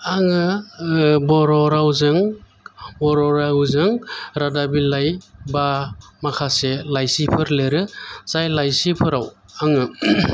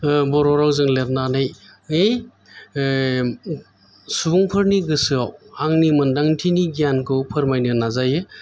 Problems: background sounds at intervals